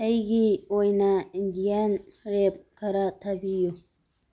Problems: none marked